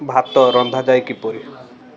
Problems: background sounds at intervals, echo